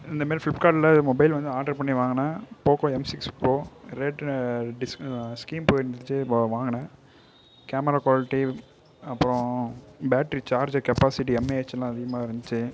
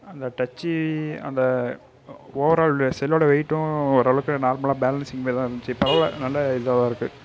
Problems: background sounds at intervals